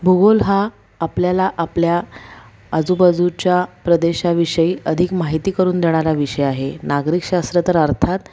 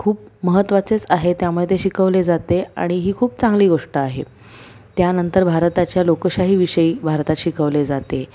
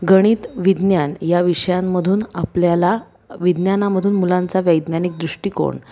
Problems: background sounds at intervals